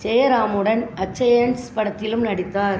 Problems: background sounds at intervals, background conversations at intervals